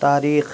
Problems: constant background noise